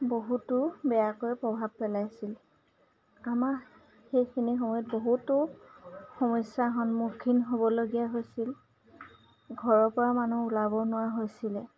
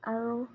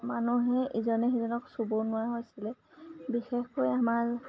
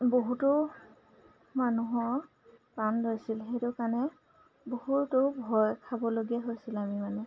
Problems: none marked